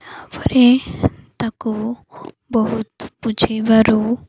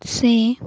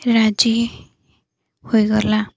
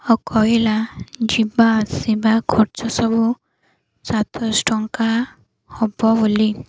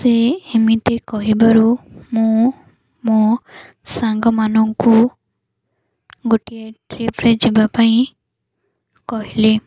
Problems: none marked